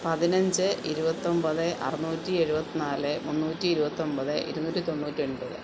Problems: constant background noise